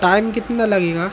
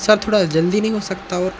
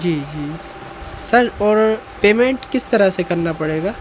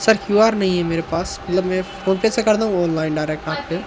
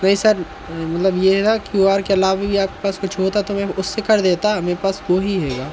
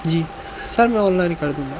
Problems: constant background noise